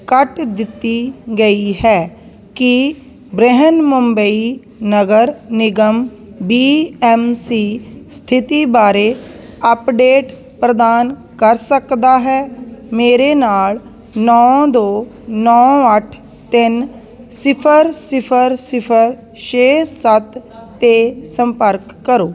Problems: constant background noise